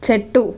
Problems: constant background noise